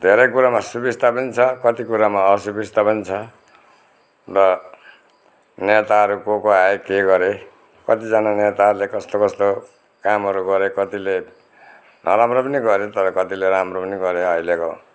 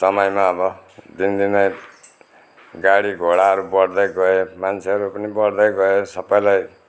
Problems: none marked